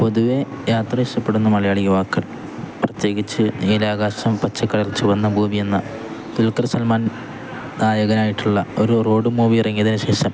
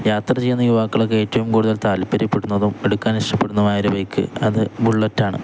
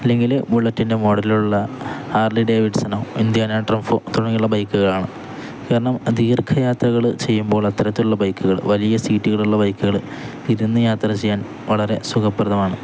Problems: constant background noise